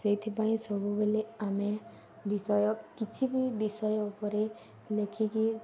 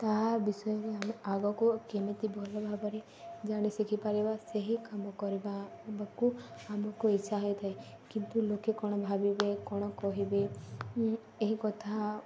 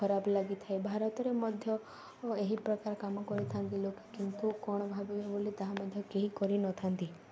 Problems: none marked